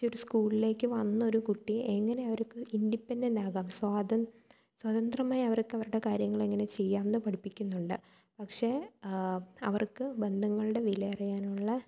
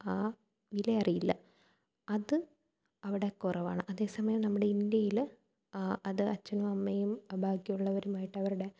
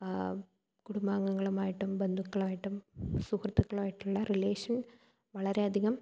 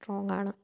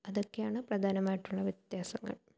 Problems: low volume